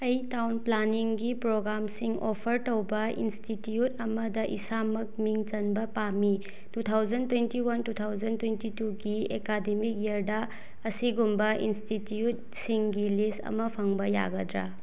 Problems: none marked